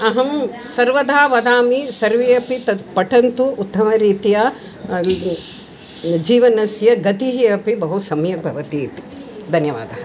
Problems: constant background noise